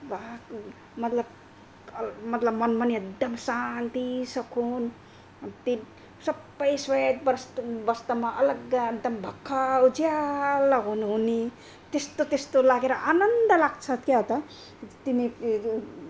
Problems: none marked